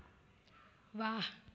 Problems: none marked